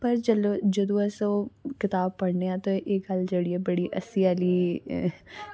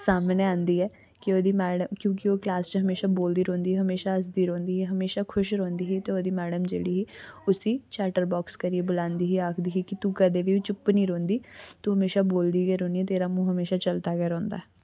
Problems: background sounds at intervals